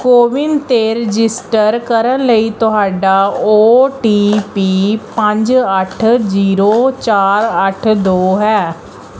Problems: none marked